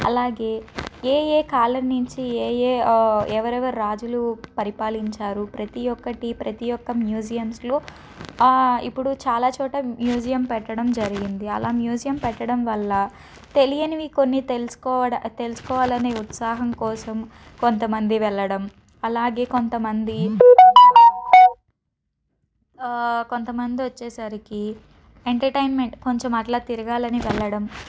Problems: background sounds at intervals, background conversations at intervals